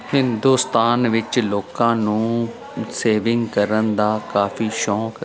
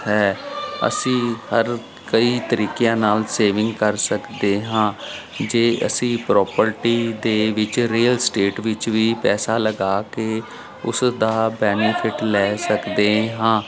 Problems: none marked